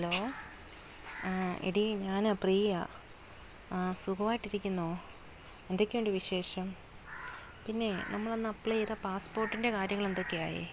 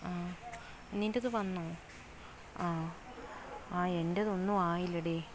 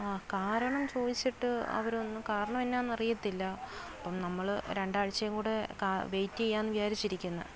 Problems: none marked